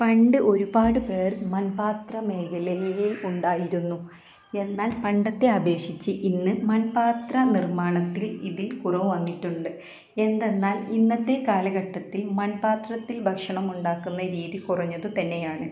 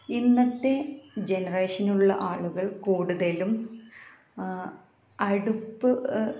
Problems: constant background noise, low volume